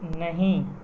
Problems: constant background noise, low volume